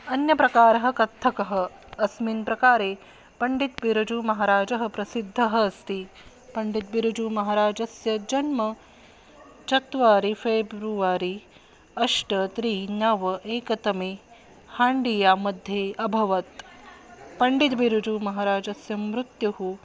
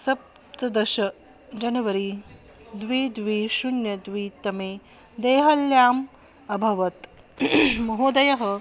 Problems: constant background noise